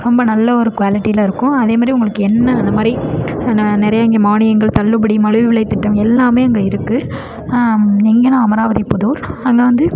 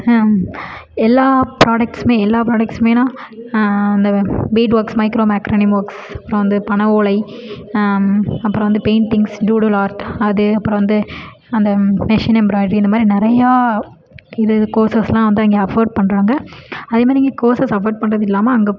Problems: background conversations at intervals